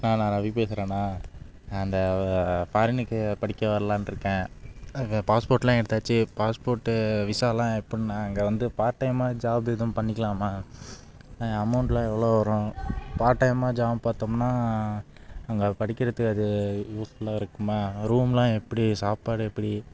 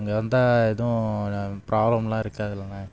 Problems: background sounds at intervals